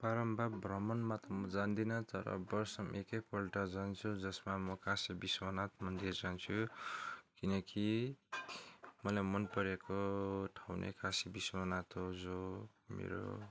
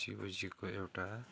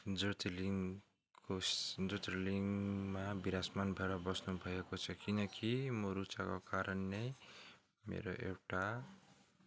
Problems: constant background noise